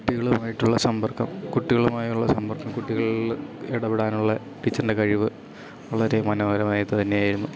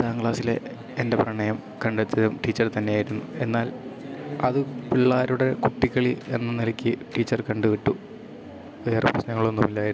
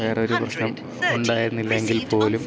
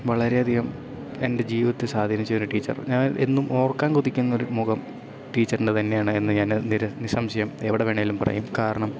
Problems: none marked